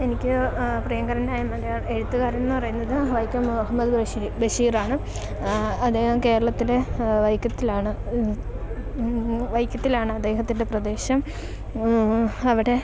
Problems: background sounds at intervals